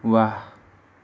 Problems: background sounds at intervals